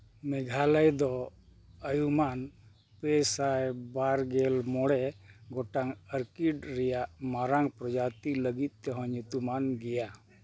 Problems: none marked